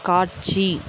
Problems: background sounds at intervals